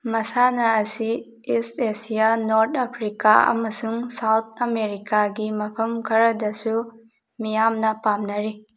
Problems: none marked